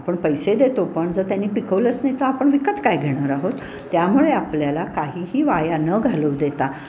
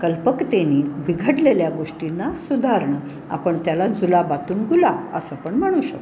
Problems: none marked